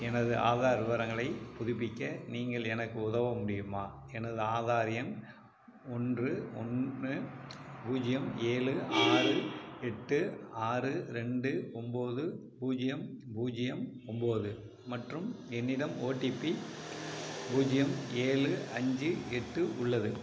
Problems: background sounds at intervals